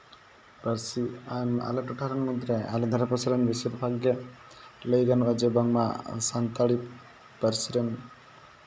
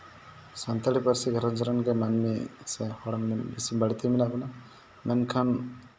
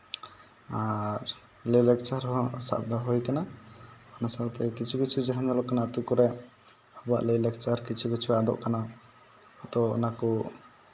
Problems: background sounds at intervals